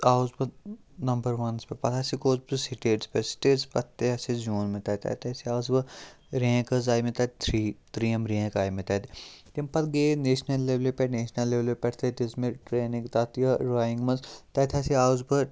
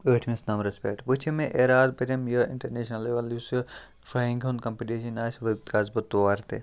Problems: none marked